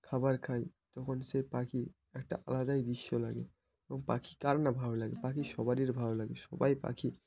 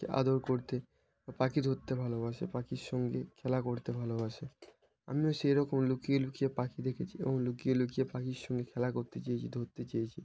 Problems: constant background noise